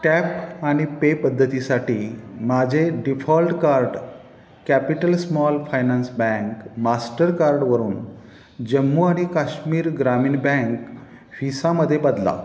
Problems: none marked